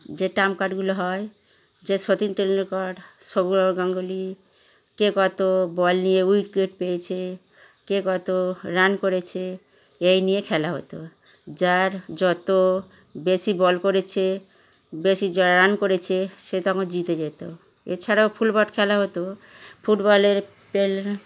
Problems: none marked